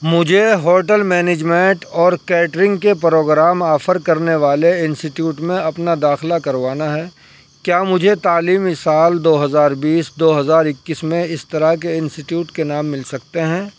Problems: background sounds at intervals